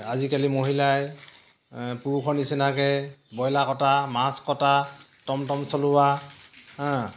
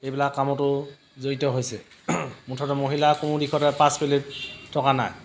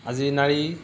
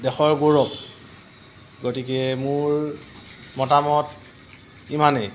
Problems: constant background noise, background conversations at intervals